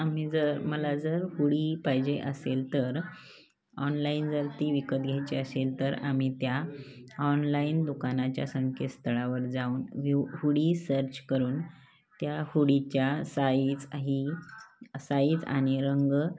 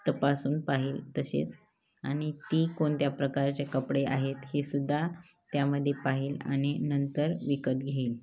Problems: constant background noise, low volume